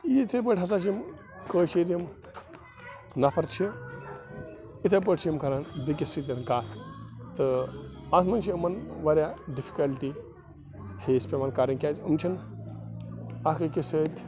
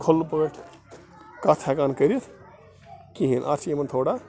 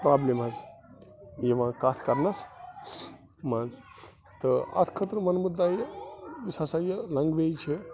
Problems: constant background noise, continuous background conversations